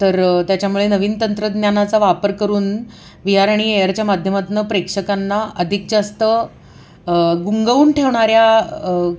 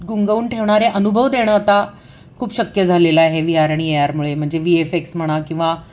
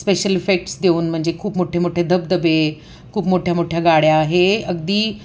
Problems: background sounds at intervals